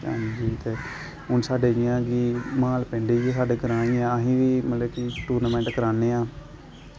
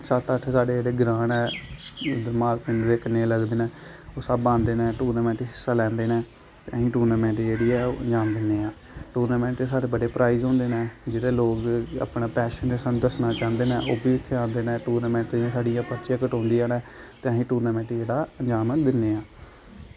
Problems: background sounds at intervals